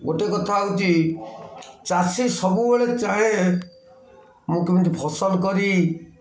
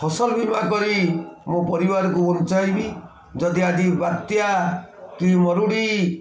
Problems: constant background noise, continuous background conversations